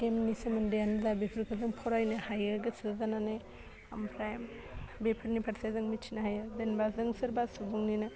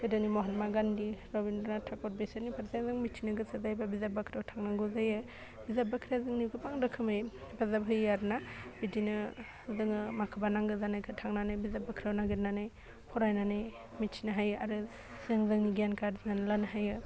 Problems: constant background noise